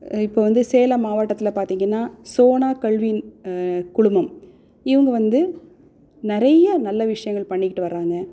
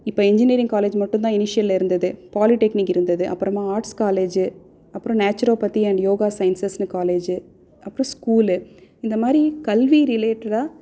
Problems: none marked